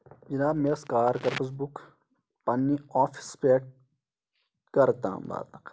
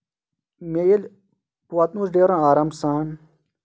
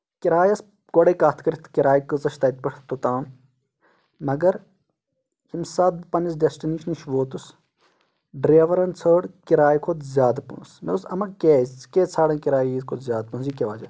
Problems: none marked